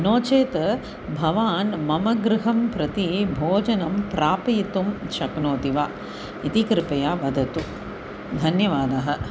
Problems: constant background noise